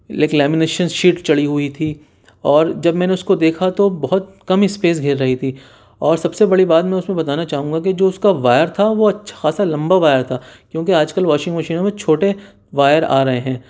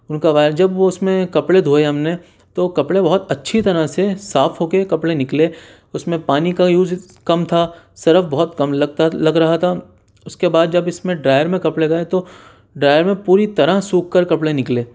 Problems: none marked